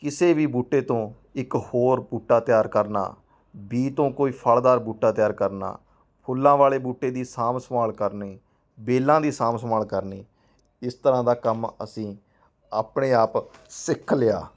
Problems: background conversations at intervals